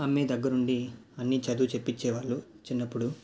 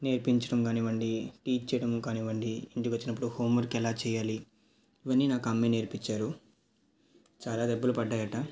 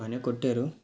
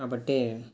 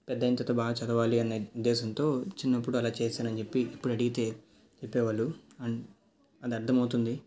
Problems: none marked